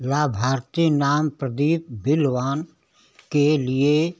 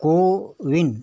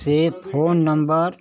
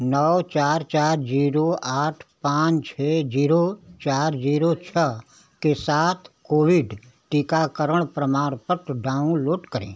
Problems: none marked